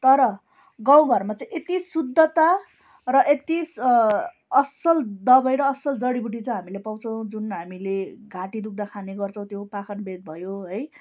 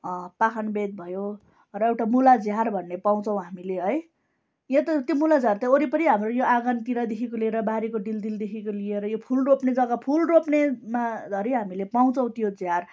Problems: background sounds at intervals